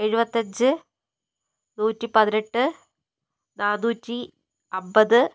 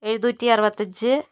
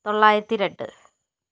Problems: none marked